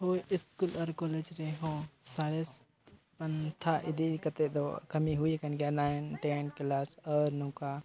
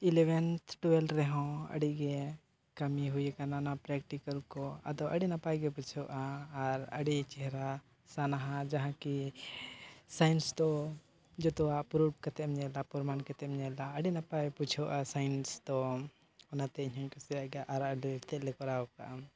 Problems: none marked